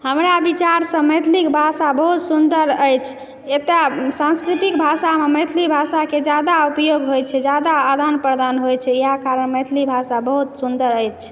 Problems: background sounds at intervals